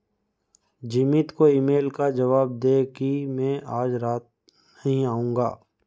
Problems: background sounds at intervals